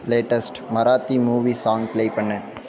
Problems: continuous background conversations